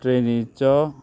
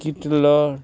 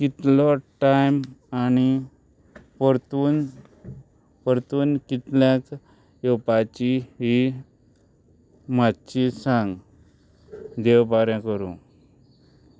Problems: background sounds at intervals